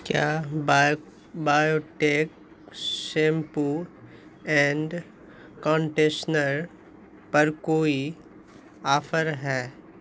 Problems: constant background noise